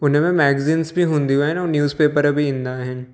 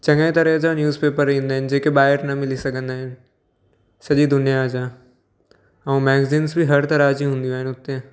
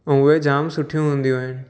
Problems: background sounds at intervals, echo